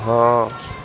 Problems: constant background noise